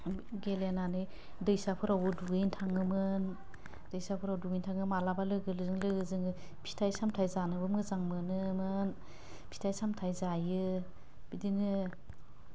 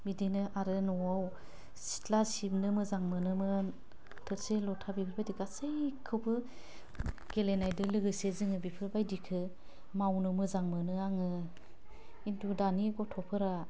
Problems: low volume